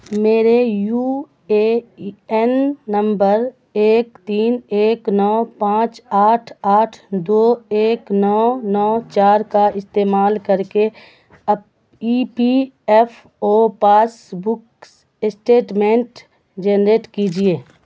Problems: constant background noise